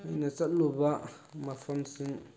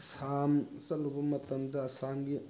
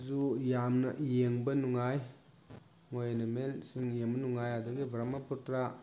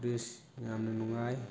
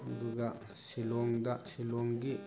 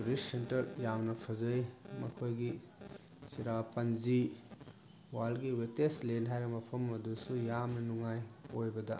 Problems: background sounds at intervals